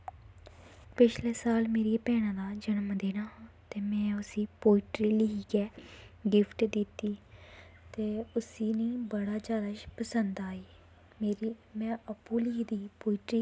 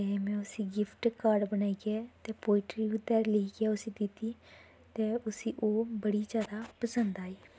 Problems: background sounds at intervals